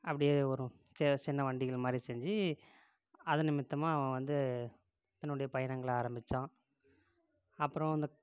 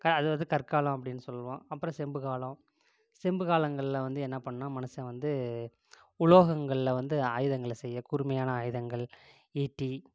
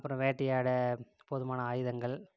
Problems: constant background noise, low volume